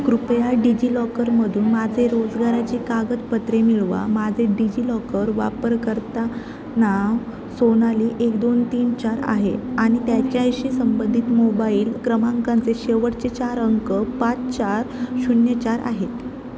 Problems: none marked